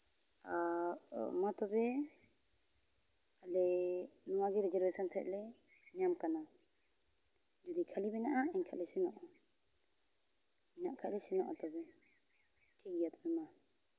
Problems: none marked